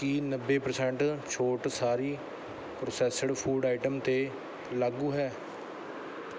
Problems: none marked